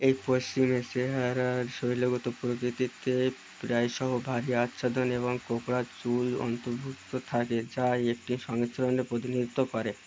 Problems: constant background noise